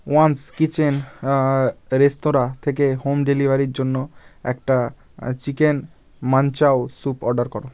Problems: none marked